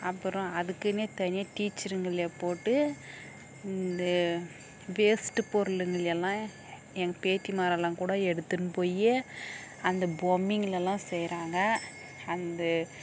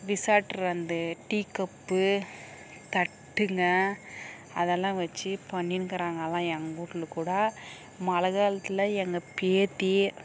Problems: background sounds at intervals